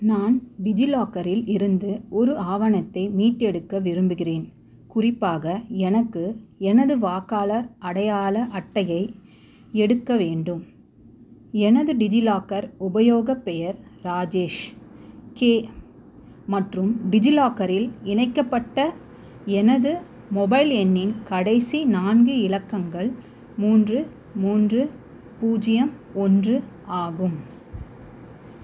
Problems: constant background noise